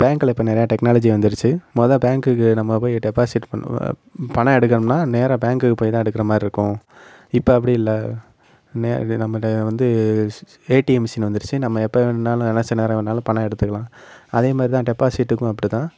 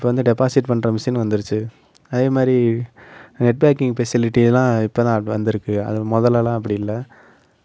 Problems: none marked